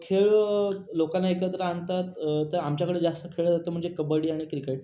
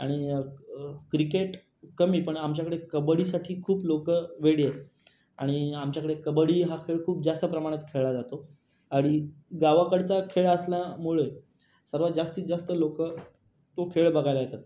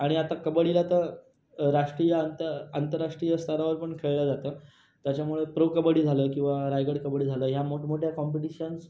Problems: background sounds at intervals